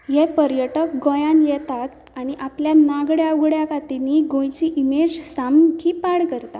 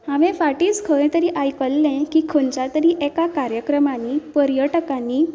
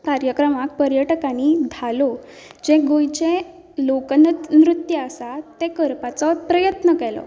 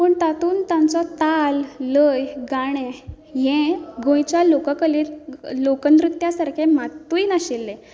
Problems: none marked